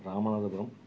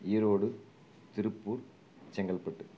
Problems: background sounds at intervals, low volume